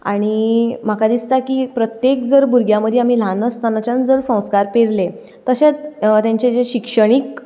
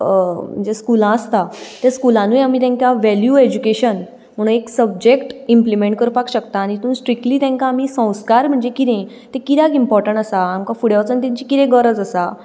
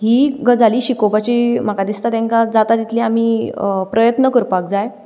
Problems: background sounds at intervals